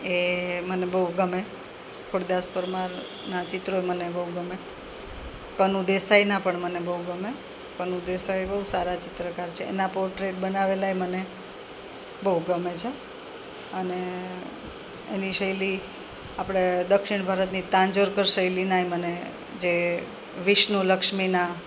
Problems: none marked